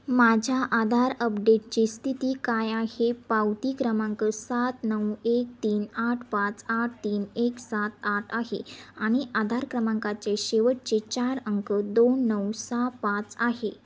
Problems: constant background noise